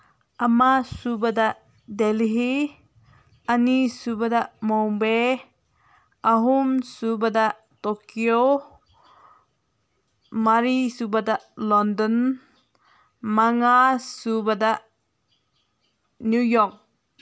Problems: none marked